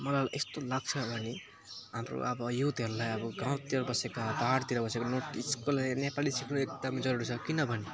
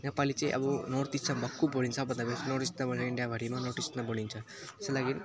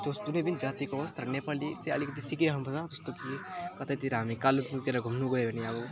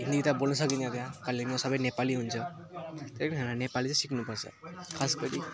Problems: none marked